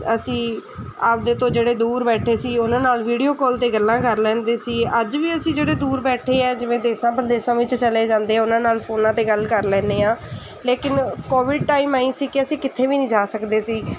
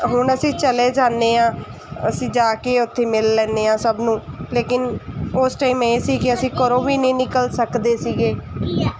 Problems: none marked